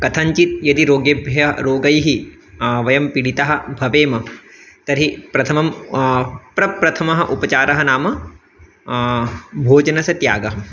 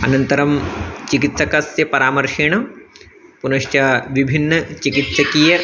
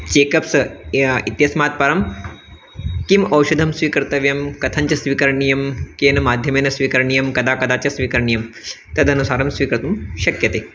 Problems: constant background noise, background conversations at intervals